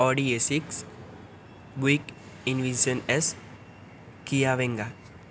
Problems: none marked